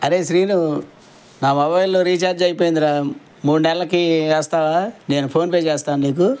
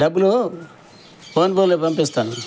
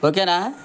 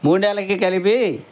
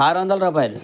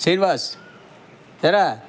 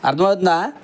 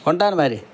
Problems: none marked